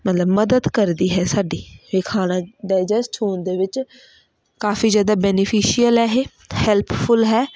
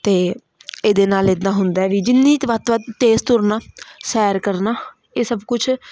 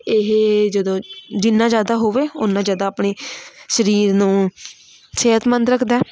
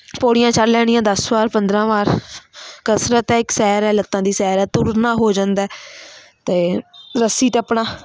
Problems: none marked